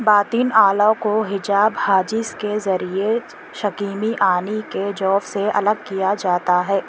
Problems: constant background noise